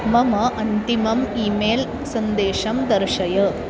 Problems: constant background noise